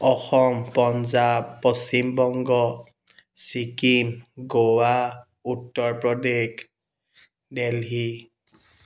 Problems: background sounds at intervals